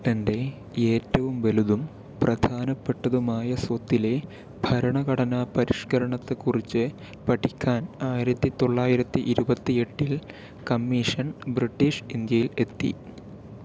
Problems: none marked